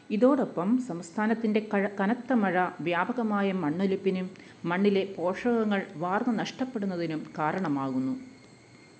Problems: background sounds at intervals